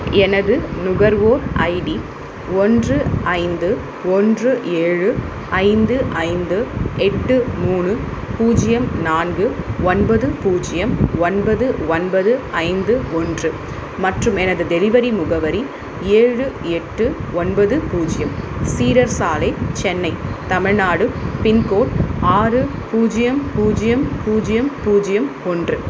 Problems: constant background noise